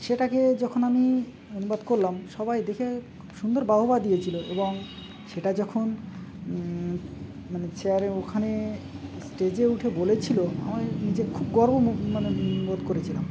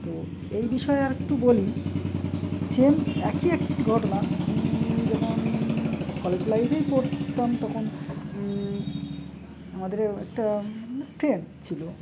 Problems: constant background noise, background conversations at intervals